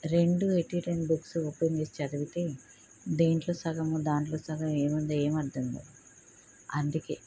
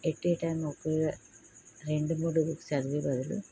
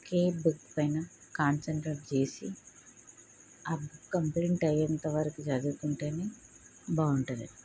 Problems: low volume